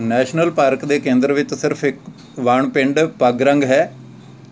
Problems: none marked